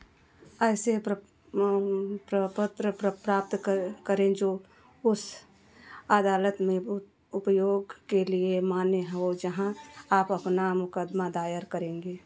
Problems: background sounds at intervals